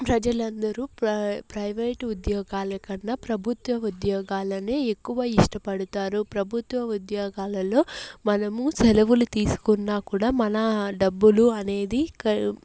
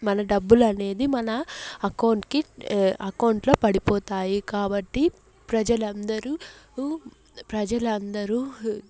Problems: none marked